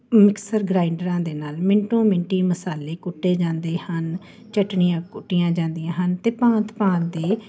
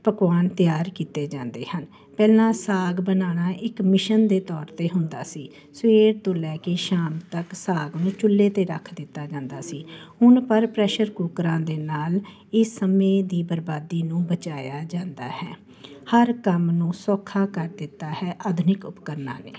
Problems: constant background noise